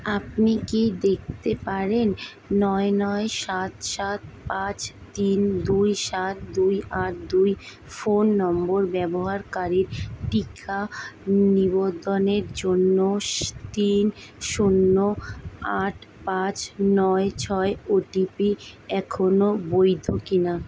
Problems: constant background noise